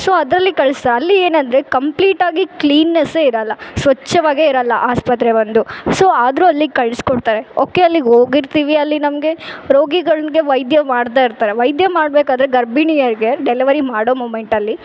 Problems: background sounds at intervals